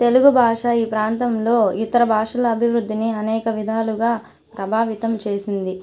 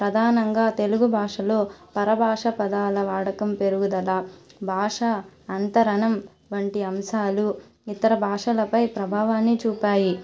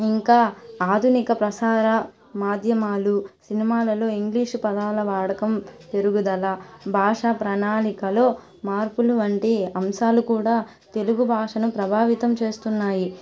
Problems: constant background noise